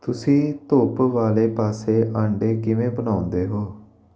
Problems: none marked